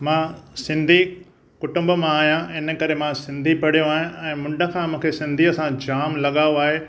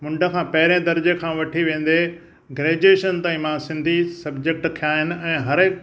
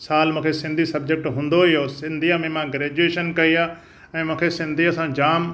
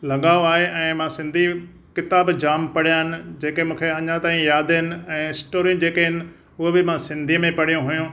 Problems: none marked